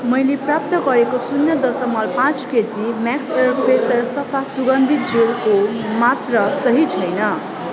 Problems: continuous background conversations